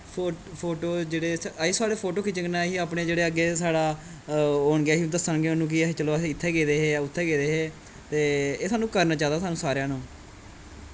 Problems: constant background noise, background conversations at intervals